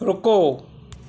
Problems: none marked